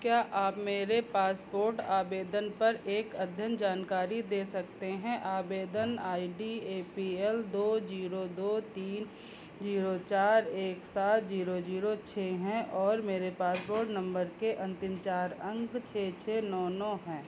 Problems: constant background noise